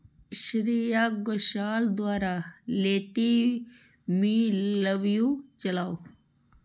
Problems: low volume